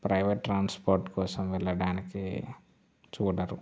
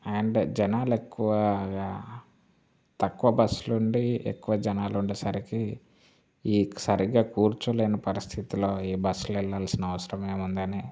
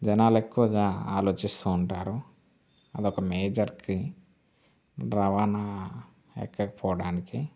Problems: constant background noise